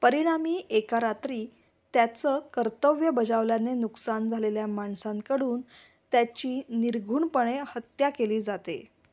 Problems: background sounds at intervals